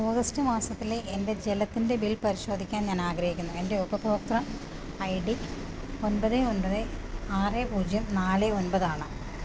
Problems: constant background noise